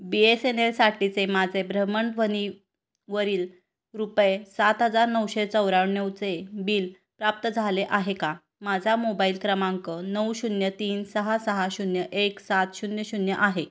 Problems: constant background noise